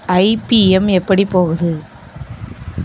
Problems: constant background noise